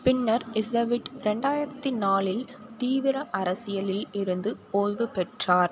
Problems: none marked